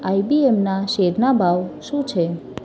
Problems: background sounds at intervals